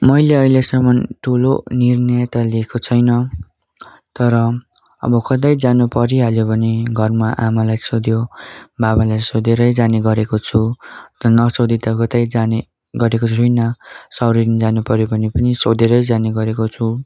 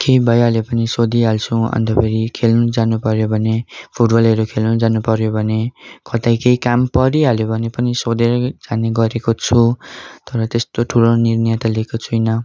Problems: background sounds at intervals